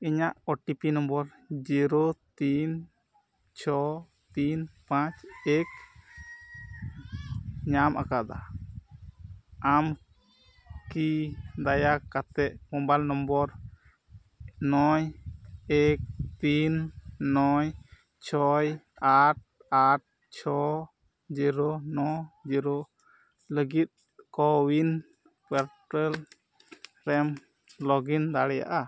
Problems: constant background noise